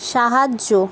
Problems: constant background noise